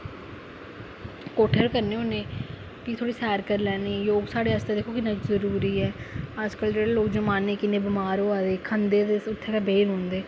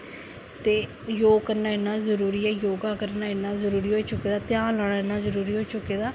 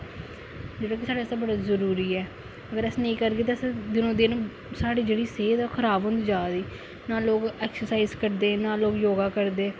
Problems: none marked